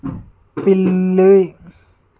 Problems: constant background noise